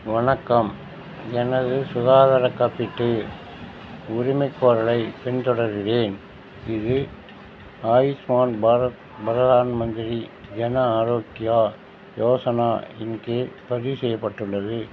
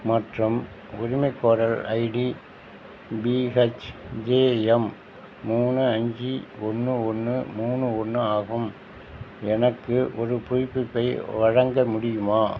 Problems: constant background noise